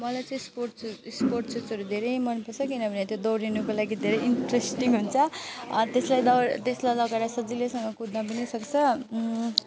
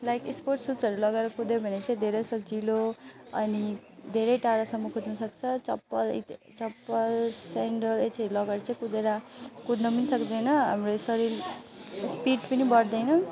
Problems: background sounds at intervals